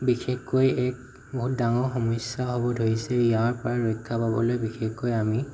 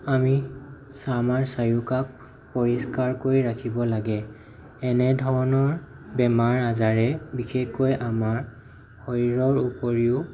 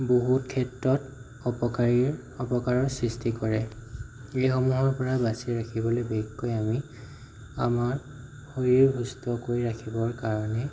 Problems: none marked